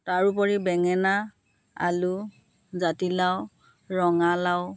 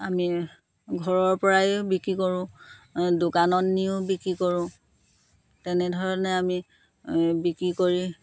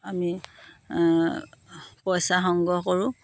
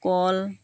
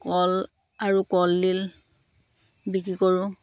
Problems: constant background noise